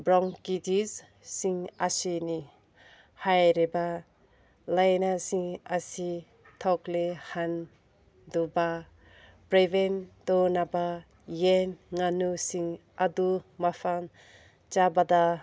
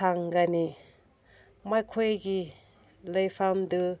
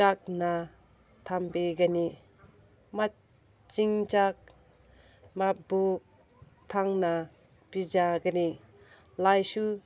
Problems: none marked